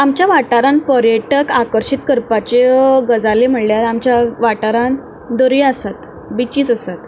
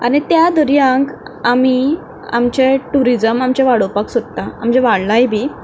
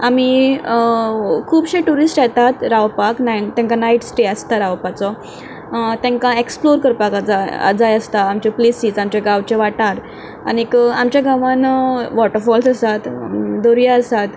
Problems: background sounds at intervals